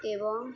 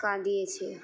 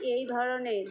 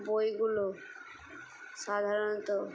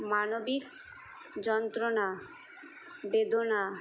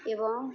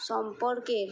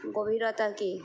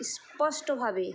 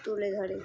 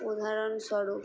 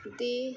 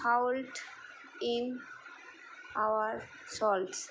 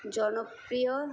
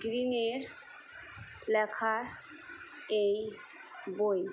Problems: background sounds at intervals